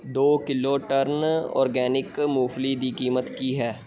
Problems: background sounds at intervals, background conversations at intervals